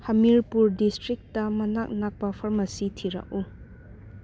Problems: background sounds at intervals